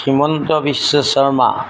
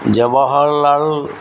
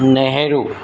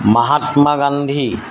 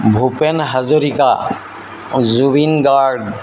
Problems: constant background noise